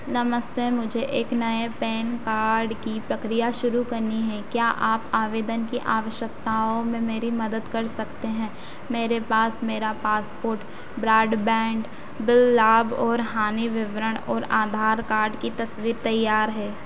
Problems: constant background noise